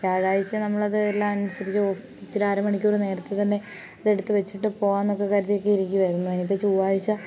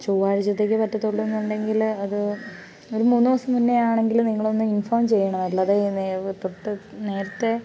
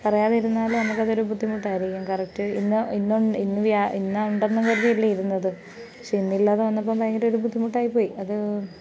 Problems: background sounds at intervals